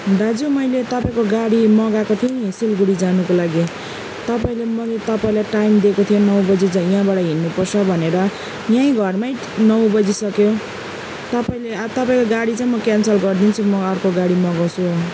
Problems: none marked